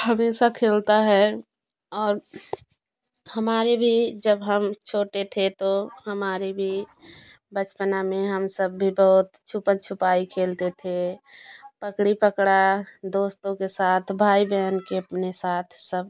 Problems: none marked